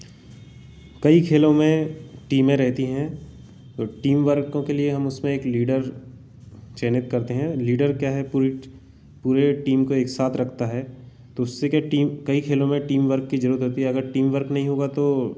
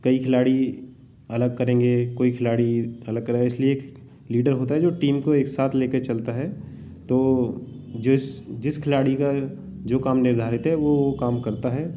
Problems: background sounds at intervals